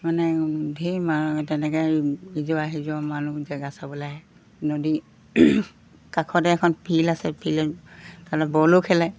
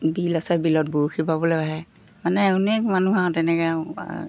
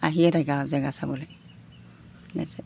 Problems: none marked